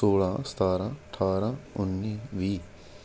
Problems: constant background noise